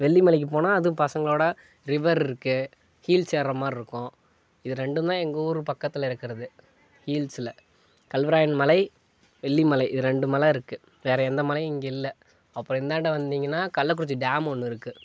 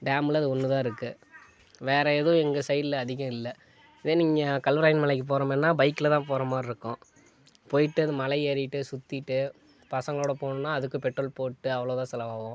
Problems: background sounds at intervals